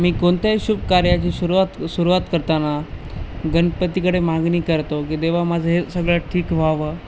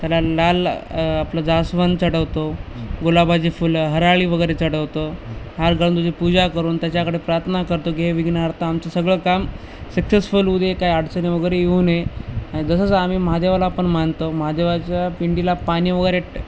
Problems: constant background noise